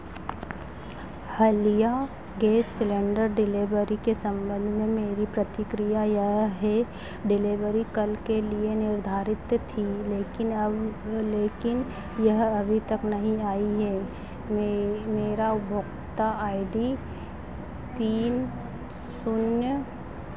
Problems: none marked